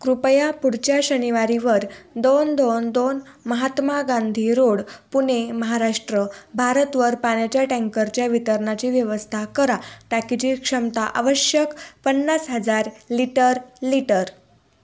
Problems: background sounds at intervals